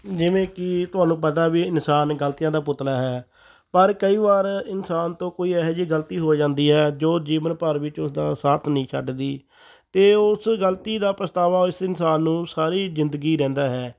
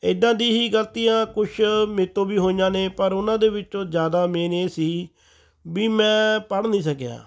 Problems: background sounds at intervals